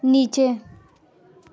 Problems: constant background noise, continuous background conversations